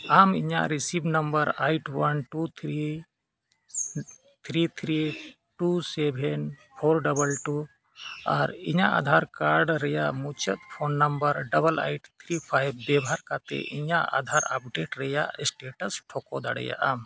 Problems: background sounds at intervals